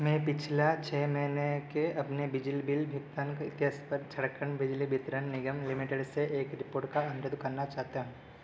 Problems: none marked